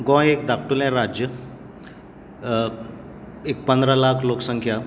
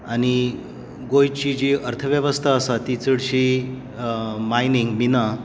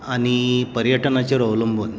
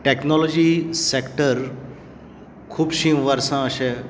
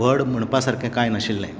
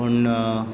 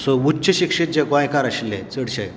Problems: background sounds at intervals